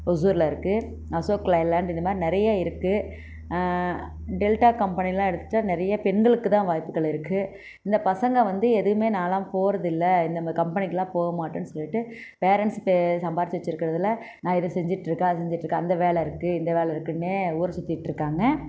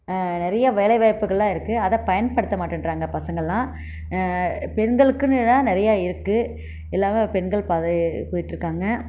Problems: constant background noise